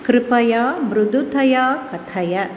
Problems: constant background noise